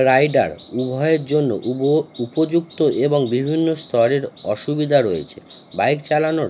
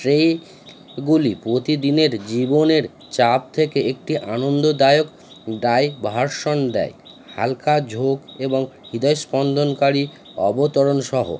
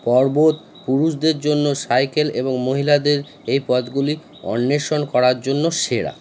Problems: constant background noise